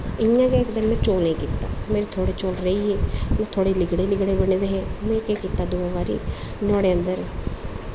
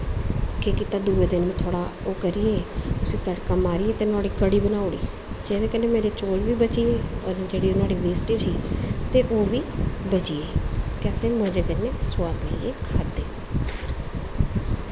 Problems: constant background noise